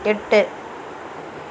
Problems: none marked